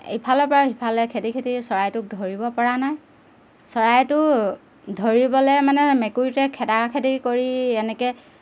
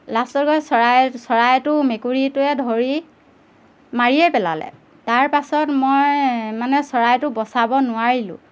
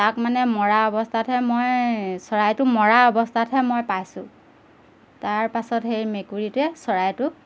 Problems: none marked